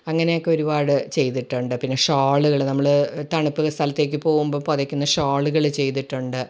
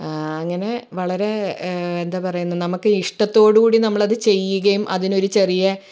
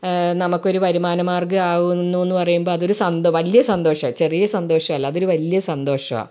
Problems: none marked